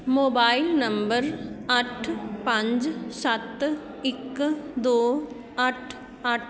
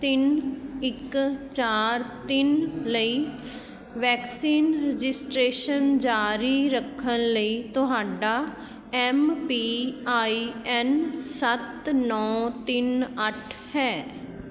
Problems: constant background noise